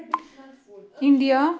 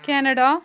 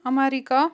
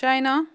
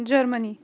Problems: background sounds at intervals, background conversations at intervals